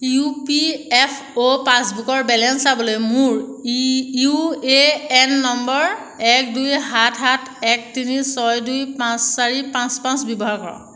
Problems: background sounds at intervals